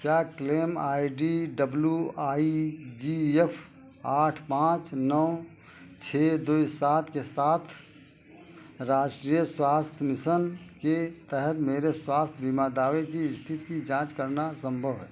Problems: constant background noise